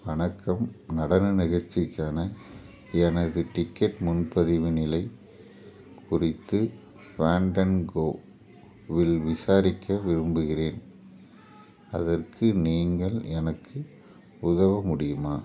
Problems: background sounds at intervals, background conversations at intervals